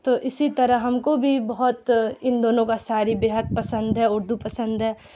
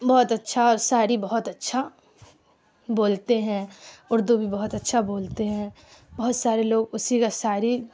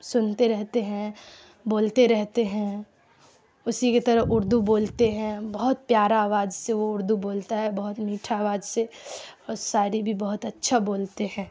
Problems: constant background noise